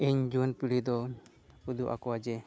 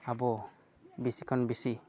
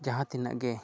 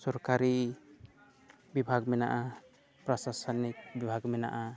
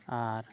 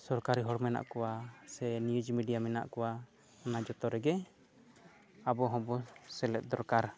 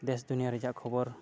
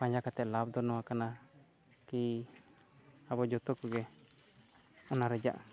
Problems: low volume